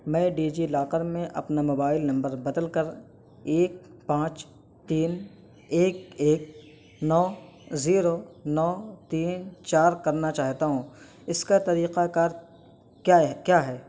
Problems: constant background noise